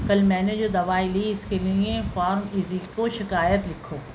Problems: constant background noise